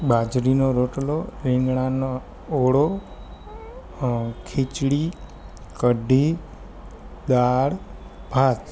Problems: constant background noise